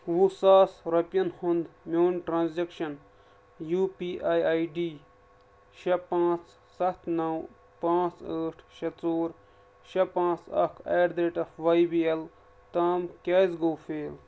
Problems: none marked